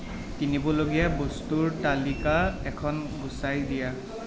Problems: background sounds at intervals